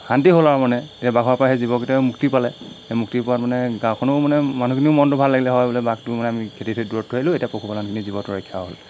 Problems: constant background noise